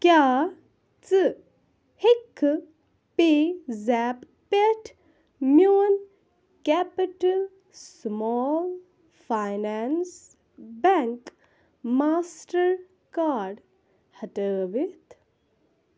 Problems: none marked